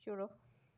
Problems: low volume